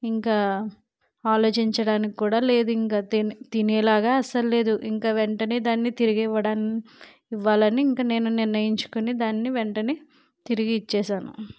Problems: none marked